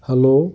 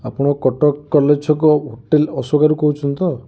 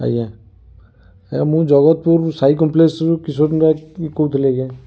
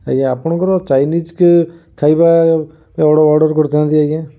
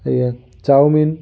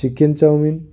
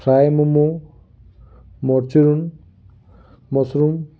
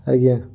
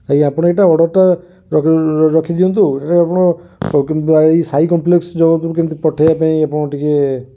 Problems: none marked